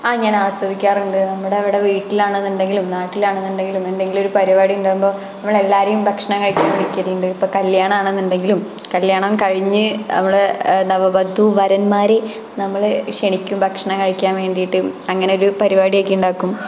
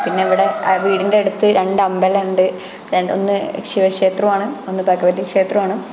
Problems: background sounds at intervals